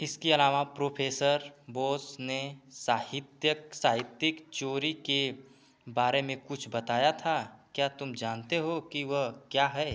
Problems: none marked